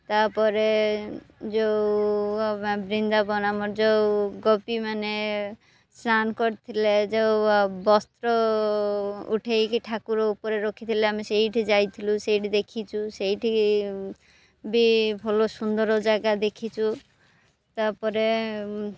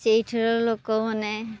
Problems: none marked